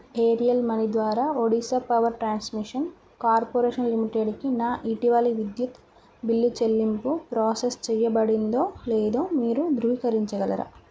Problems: none marked